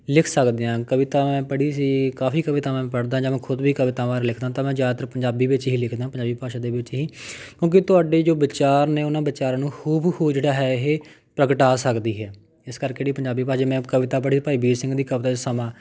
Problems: background sounds at intervals